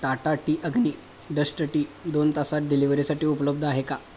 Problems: background sounds at intervals